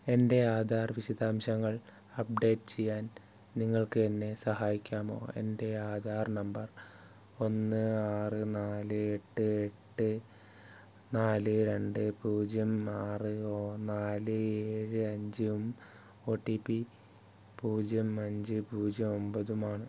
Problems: none marked